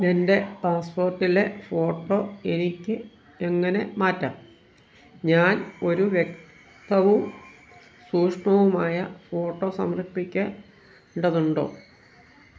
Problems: background sounds at intervals